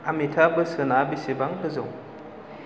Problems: constant background noise